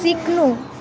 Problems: constant background noise